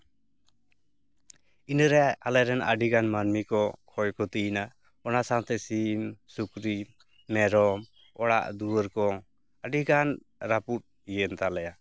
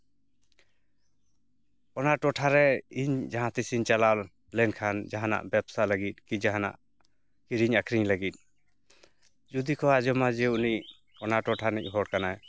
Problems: none marked